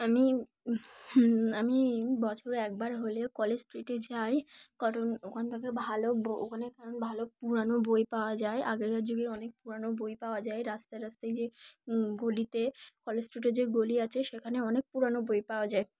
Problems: background sounds at intervals